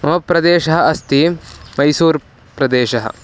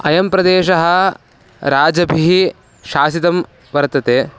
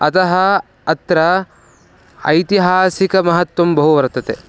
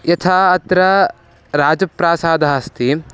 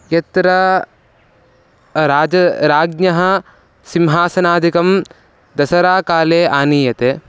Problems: low volume